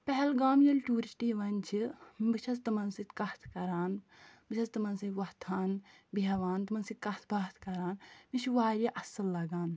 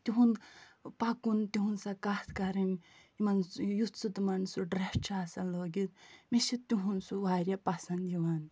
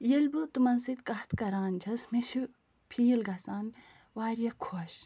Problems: none marked